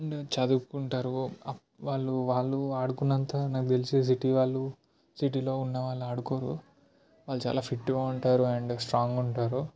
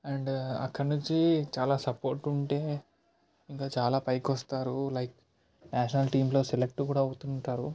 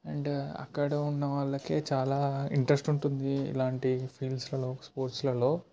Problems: background conversations at intervals, low volume